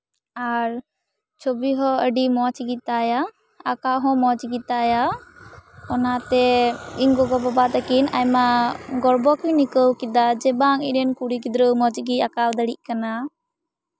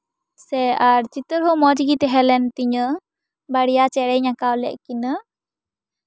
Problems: background sounds at intervals